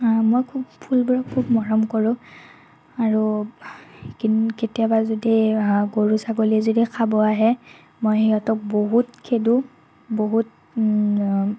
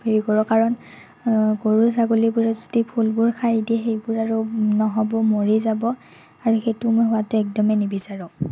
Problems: none marked